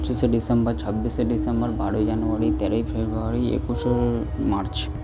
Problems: constant background noise